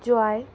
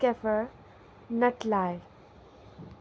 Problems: constant background noise